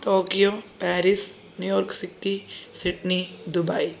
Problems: none marked